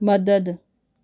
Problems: none marked